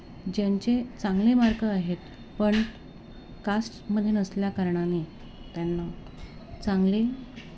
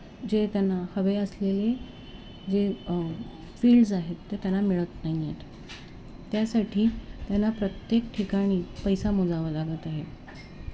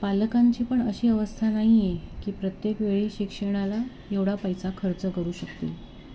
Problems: constant background noise